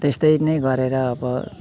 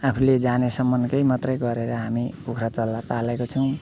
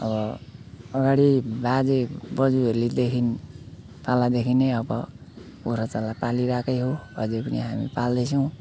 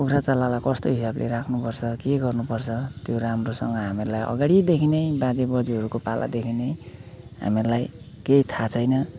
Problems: none marked